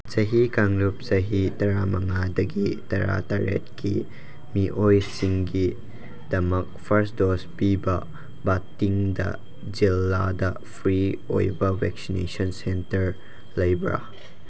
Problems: constant background noise